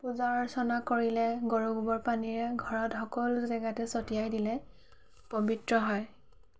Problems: background sounds at intervals, background conversations at intervals